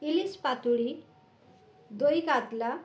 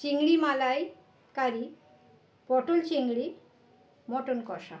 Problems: none marked